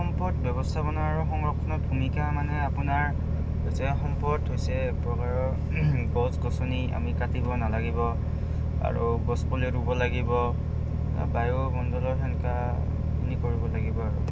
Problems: constant background noise